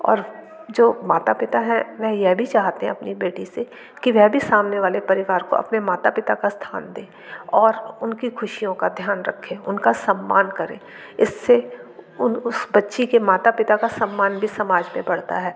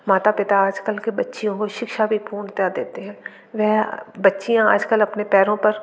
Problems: none marked